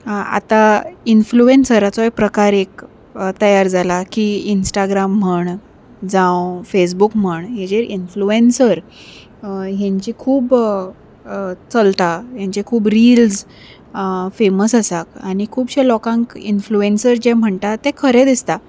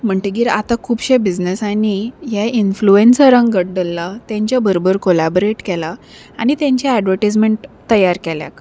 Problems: none marked